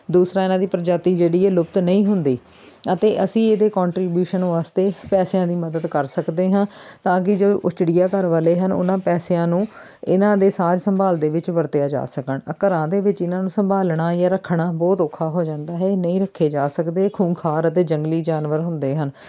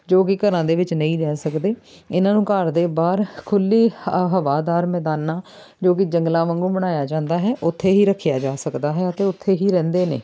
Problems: background sounds at intervals